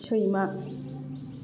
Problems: constant background noise